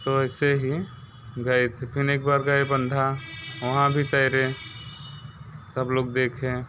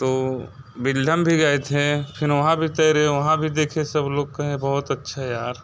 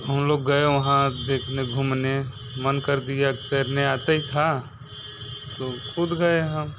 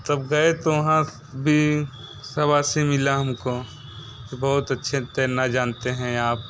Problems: none marked